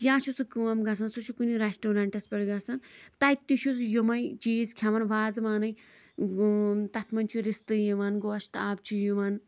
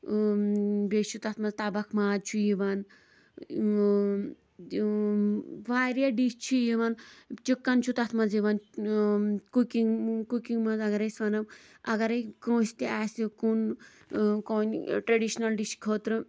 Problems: background sounds at intervals, background conversations at intervals